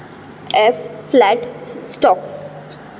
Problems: background sounds at intervals